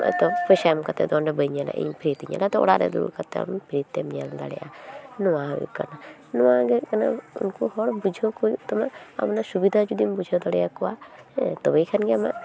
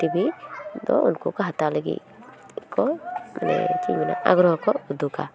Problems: continuous background conversations